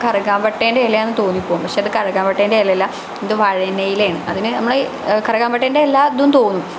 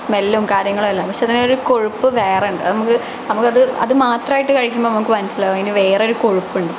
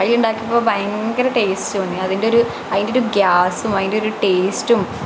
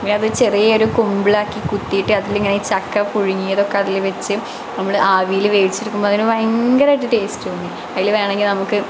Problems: constant background noise